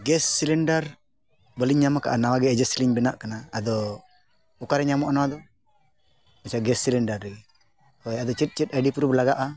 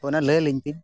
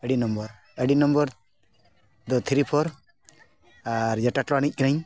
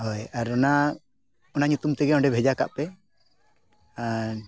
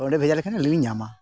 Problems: none marked